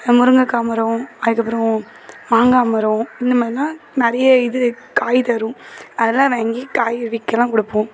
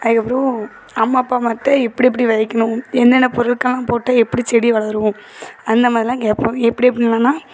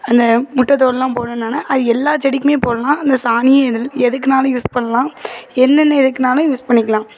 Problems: constant background noise, continuous background conversations